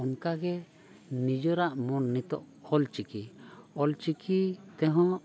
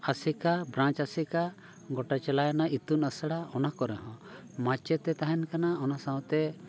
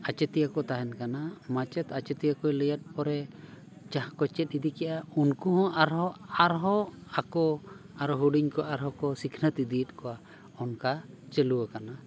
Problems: background sounds at intervals, continuous background conversations